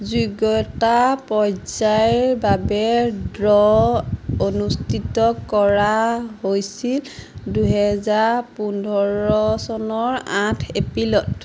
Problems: none marked